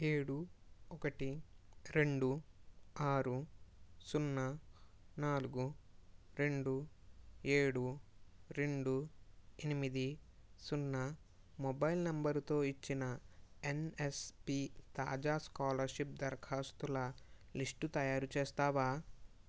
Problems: none marked